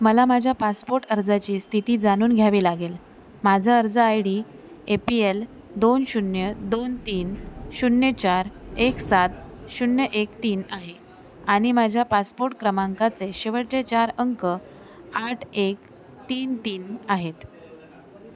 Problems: constant background noise, continuous background conversations